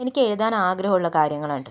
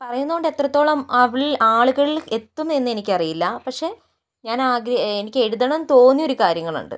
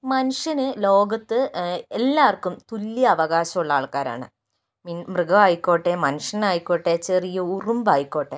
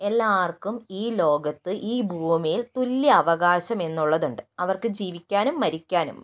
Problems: none marked